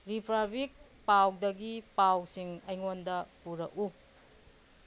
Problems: none marked